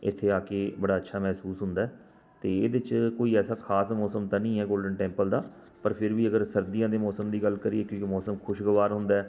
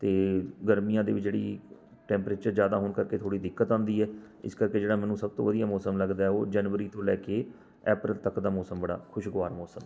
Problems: constant background noise